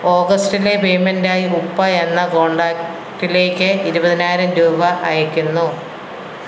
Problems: constant background noise